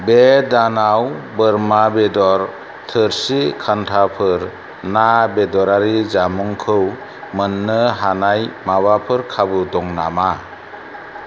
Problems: constant background noise